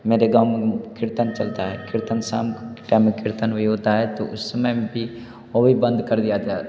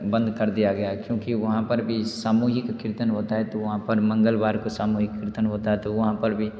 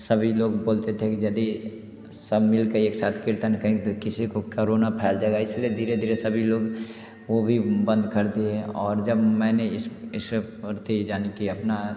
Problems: none marked